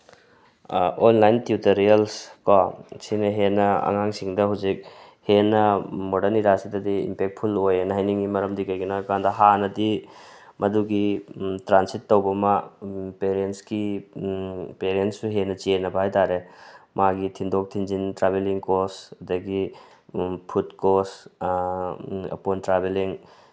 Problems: none marked